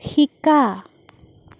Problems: none marked